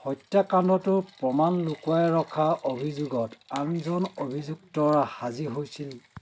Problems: constant background noise